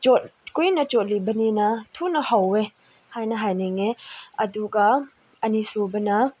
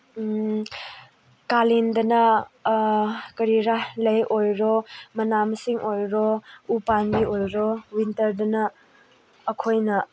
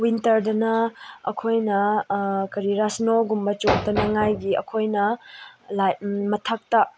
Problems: none marked